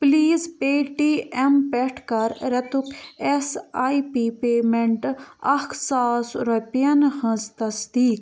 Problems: none marked